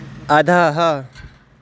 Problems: none marked